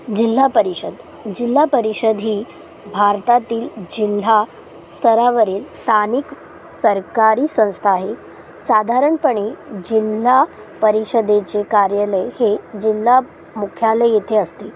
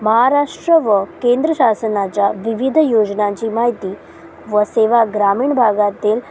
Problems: constant background noise, low volume